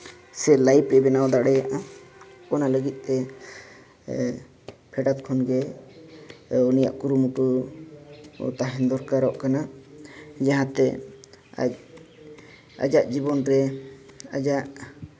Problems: none marked